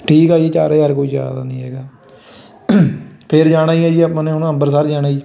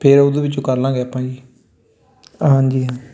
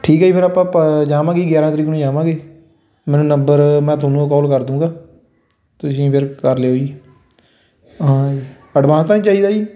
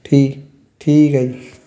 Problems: constant background noise